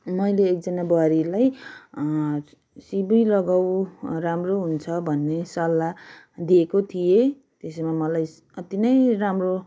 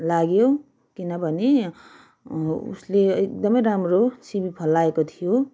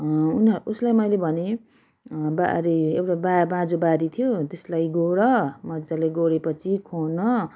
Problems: background sounds at intervals